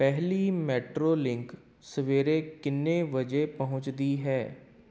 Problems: background sounds at intervals